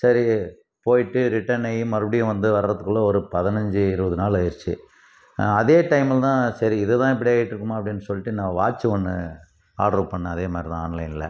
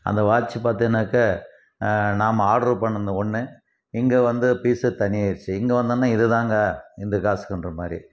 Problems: none marked